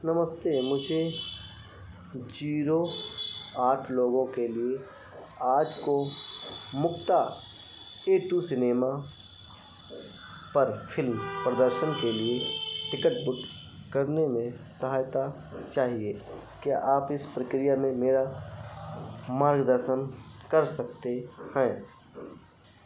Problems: none marked